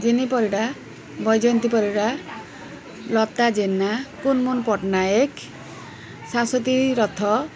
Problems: constant background noise, continuous background conversations